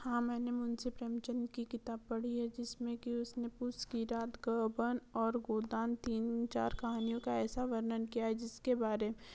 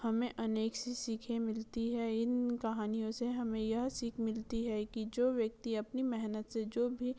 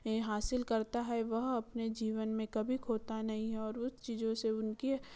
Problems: none marked